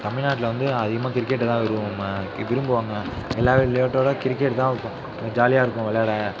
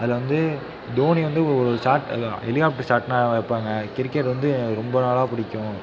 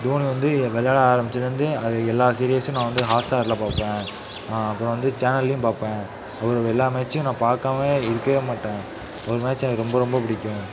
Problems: none marked